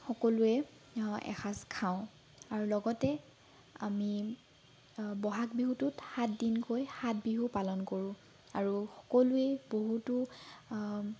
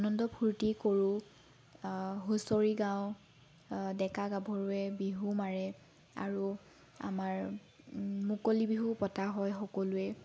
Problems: background sounds at intervals